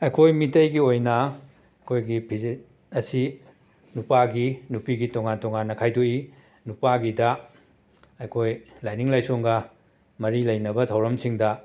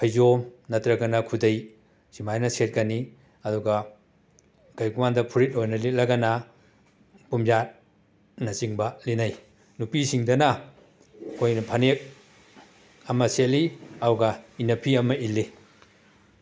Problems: background sounds at intervals